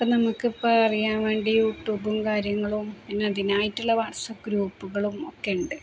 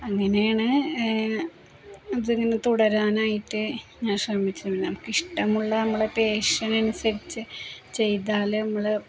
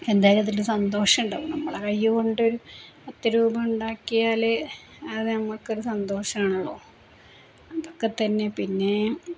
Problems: constant background noise, low volume